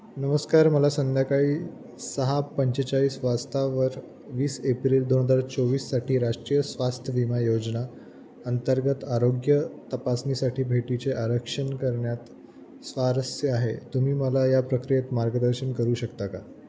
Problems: constant background noise